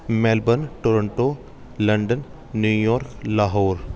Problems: background sounds at intervals, background conversations at intervals